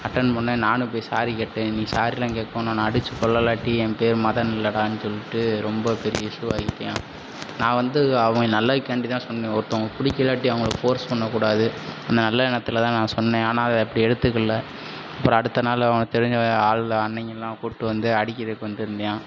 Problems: constant background noise